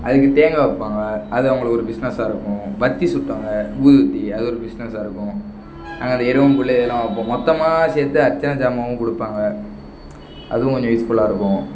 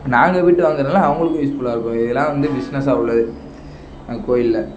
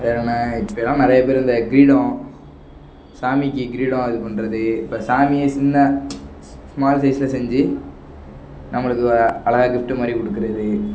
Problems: background sounds at intervals